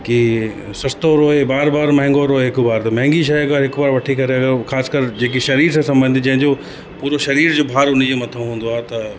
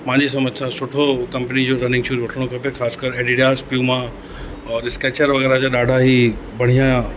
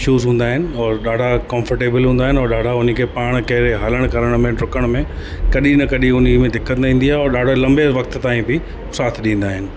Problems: constant background noise, echo